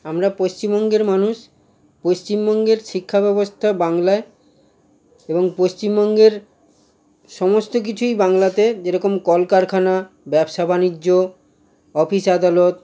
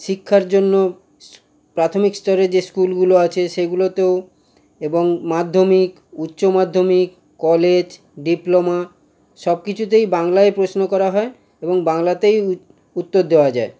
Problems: constant background noise